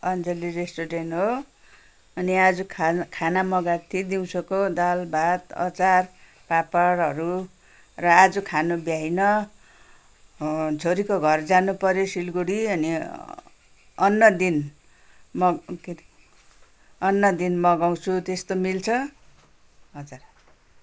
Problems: constant background noise